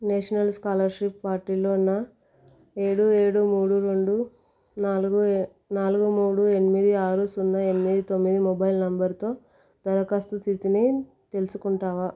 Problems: none marked